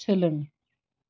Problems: none marked